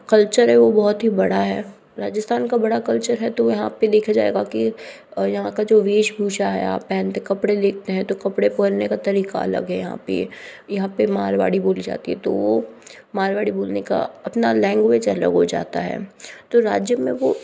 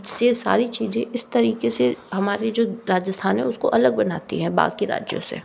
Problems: none marked